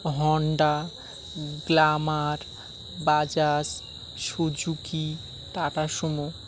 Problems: background sounds at intervals